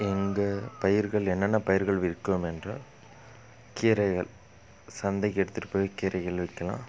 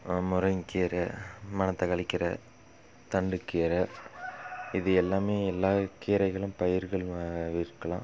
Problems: background sounds at intervals